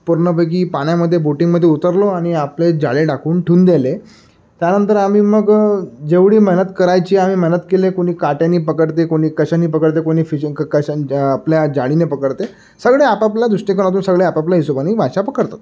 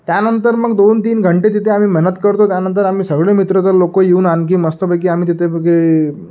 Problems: none marked